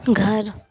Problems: constant background noise